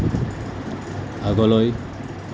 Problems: constant background noise